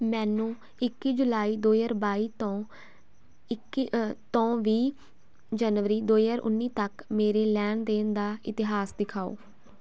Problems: constant background noise